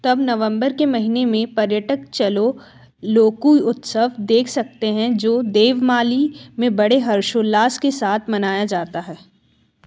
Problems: background sounds at intervals